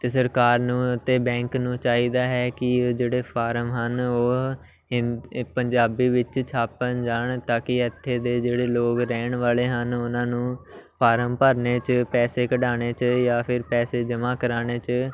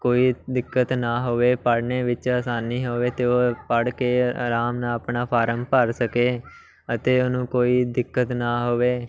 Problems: none marked